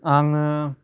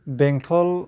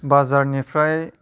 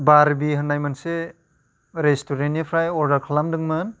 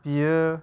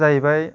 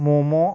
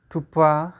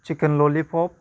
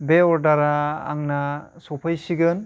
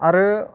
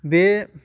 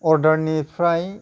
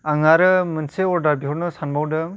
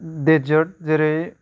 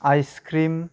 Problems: none marked